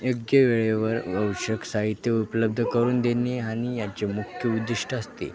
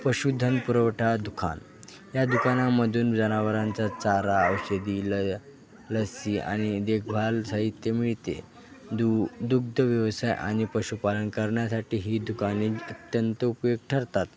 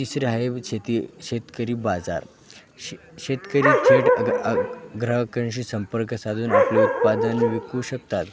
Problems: constant background noise, continuous background conversations